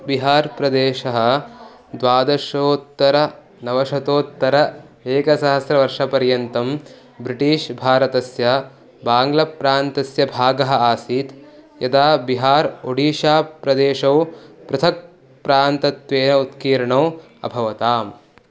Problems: continuous background conversations